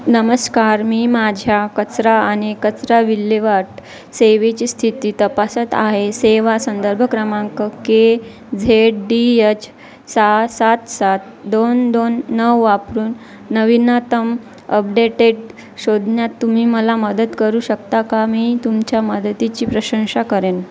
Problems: constant background noise, background conversations at intervals